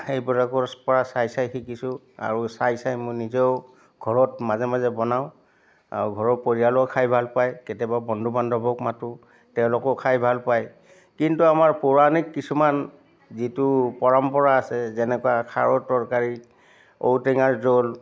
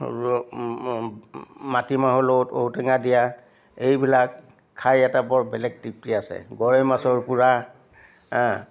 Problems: constant background noise, background conversations at intervals